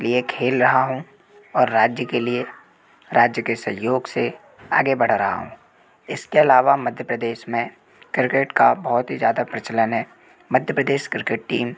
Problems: none marked